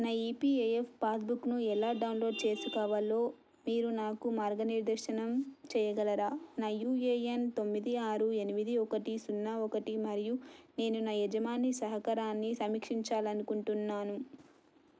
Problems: none marked